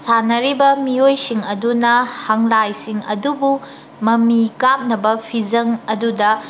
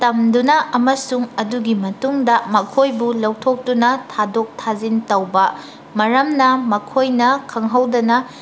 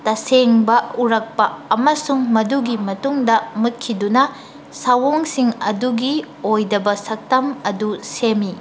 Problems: background sounds at intervals